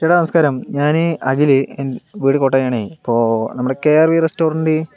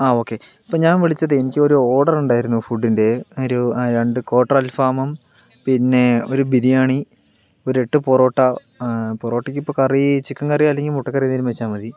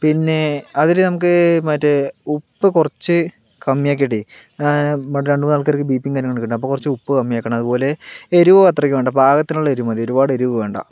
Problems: background conversations at intervals